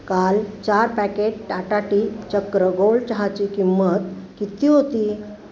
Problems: none marked